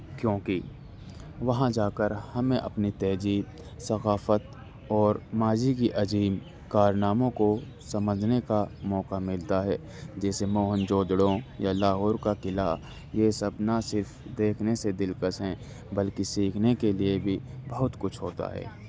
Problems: constant background noise